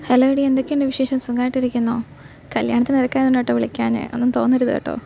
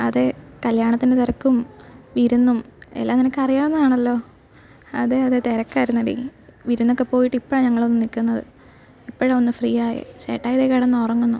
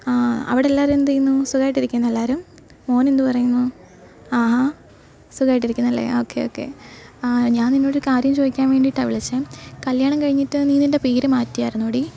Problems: background sounds at intervals